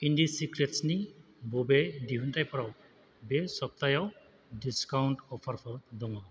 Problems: none marked